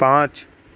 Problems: constant background noise